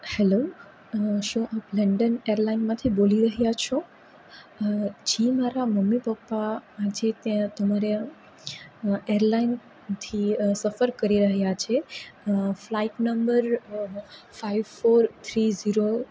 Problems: none marked